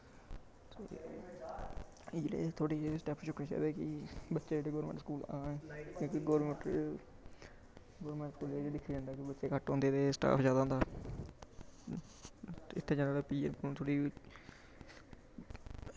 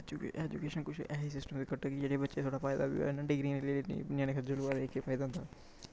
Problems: none marked